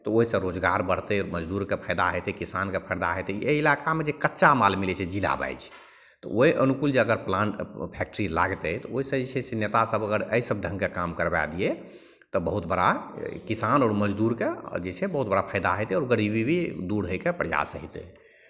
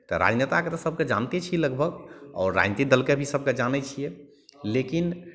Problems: none marked